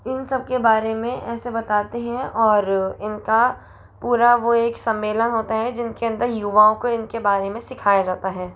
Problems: constant background noise